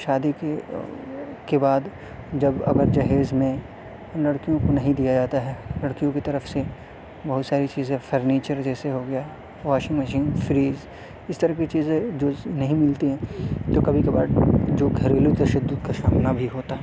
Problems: constant background noise